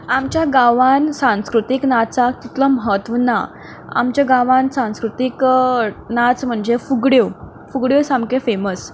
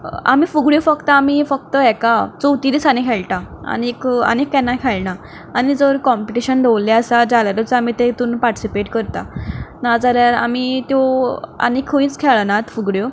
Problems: background sounds at intervals